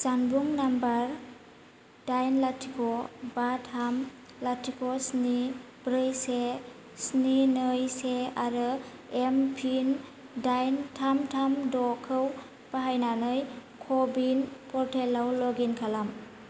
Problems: none marked